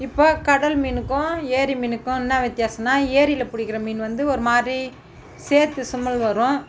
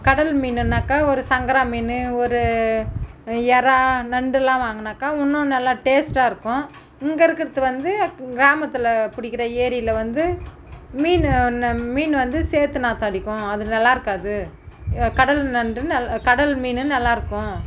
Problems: background sounds at intervals